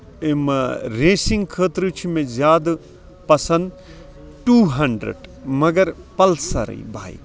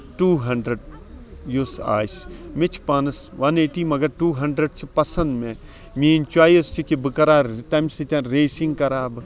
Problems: constant background noise, background conversations at intervals